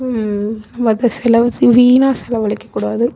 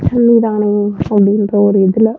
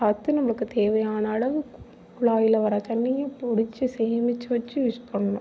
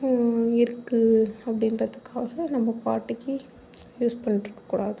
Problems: background sounds at intervals